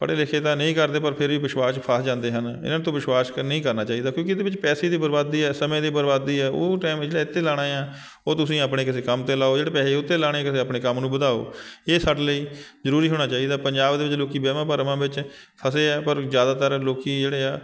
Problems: constant background noise